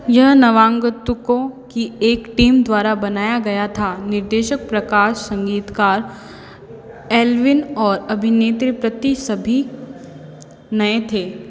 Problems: constant background noise, echo